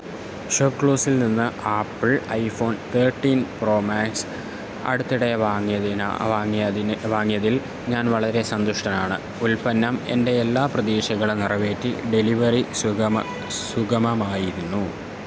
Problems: constant background noise